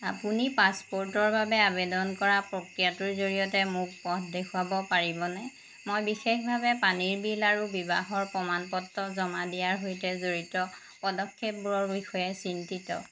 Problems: none marked